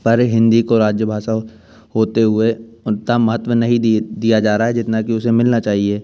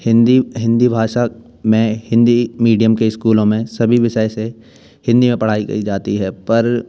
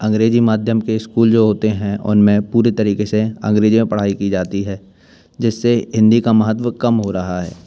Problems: none marked